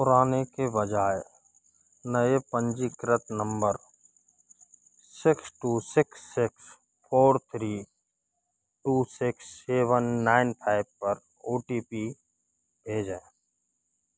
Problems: constant background noise